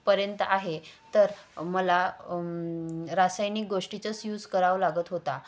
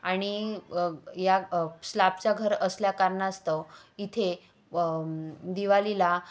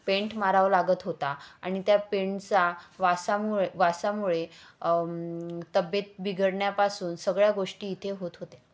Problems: none marked